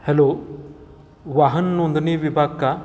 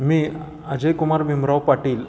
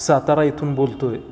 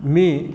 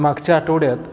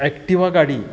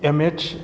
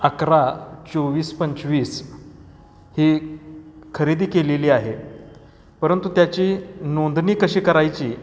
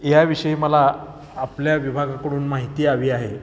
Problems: background sounds at intervals